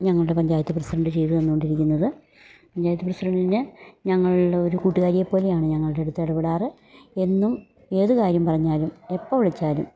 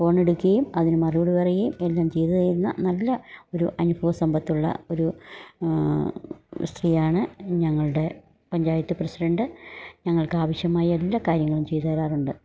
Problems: none marked